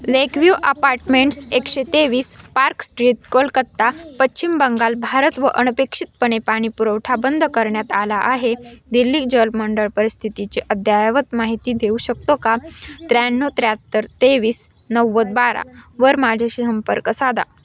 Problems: constant background noise, continuous background conversations